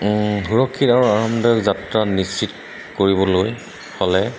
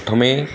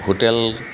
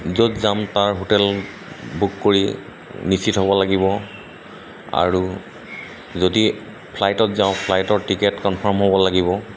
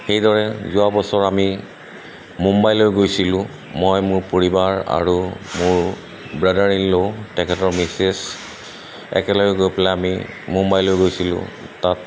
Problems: constant background noise